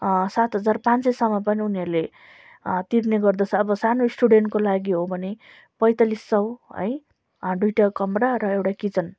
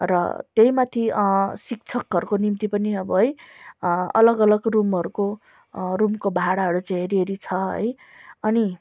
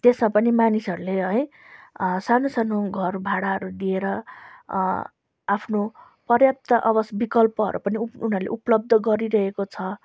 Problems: background sounds at intervals